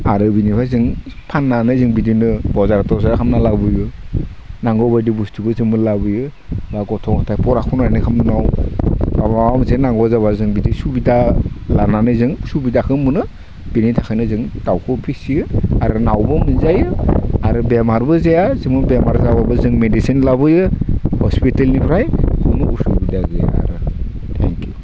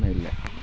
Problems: constant background noise